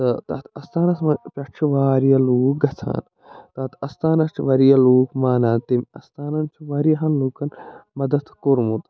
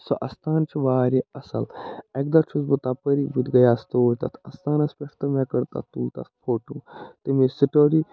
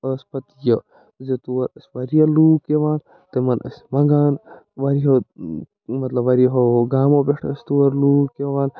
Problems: none marked